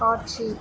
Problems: constant background noise